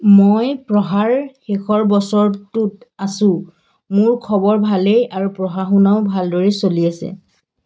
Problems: background sounds at intervals